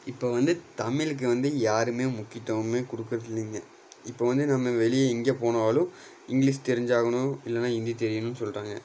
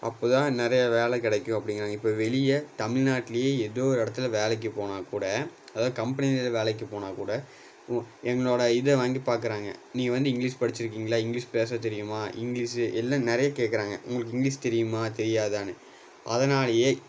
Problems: background sounds at intervals